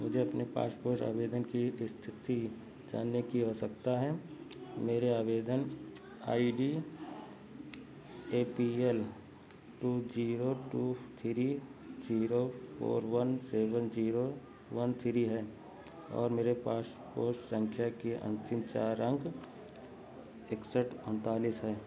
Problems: background sounds at intervals, low volume